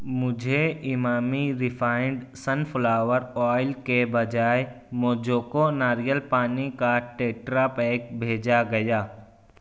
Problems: none marked